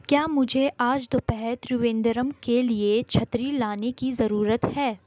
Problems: background sounds at intervals